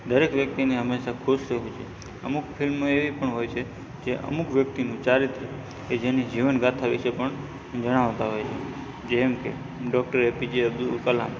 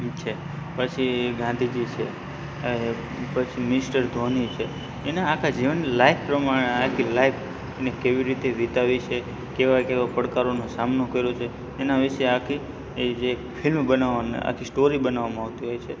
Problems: constant background noise